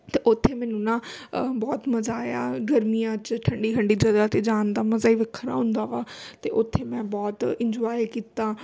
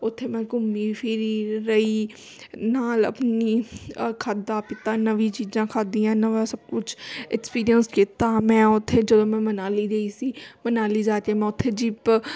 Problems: constant background noise